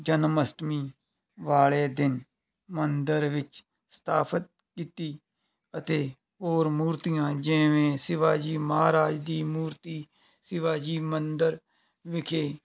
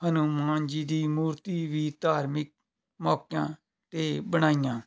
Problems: none marked